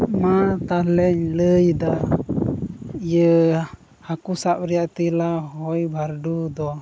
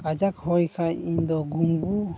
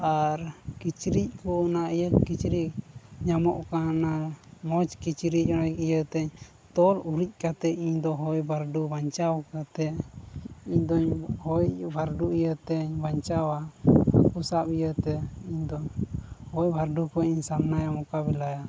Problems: constant background noise, low volume